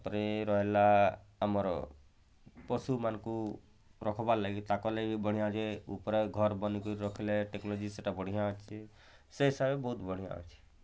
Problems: none marked